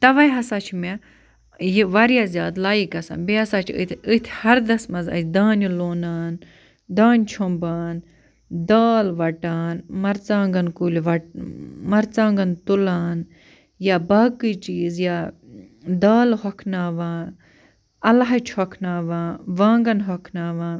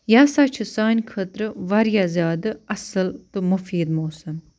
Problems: none marked